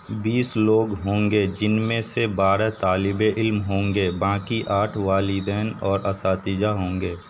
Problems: constant background noise